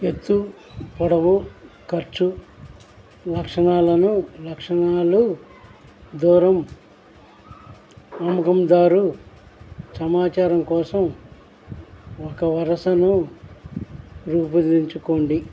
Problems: constant background noise